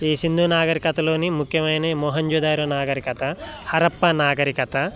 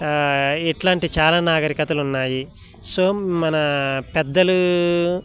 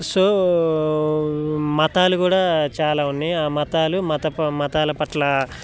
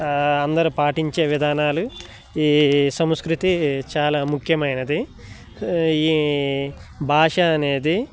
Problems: none marked